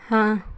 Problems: constant background noise